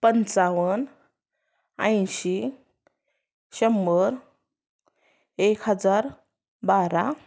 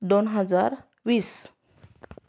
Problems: background sounds at intervals